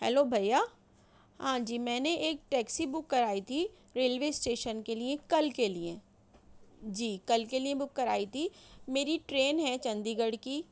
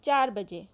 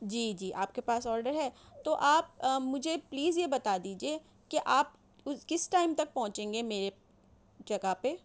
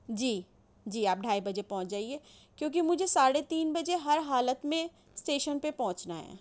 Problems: none marked